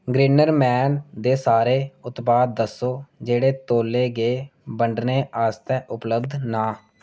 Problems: none marked